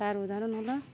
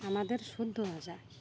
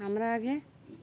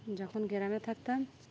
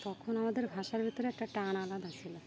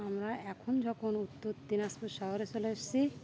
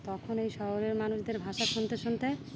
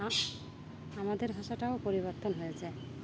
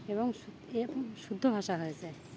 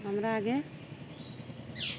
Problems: background sounds at intervals